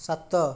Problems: none marked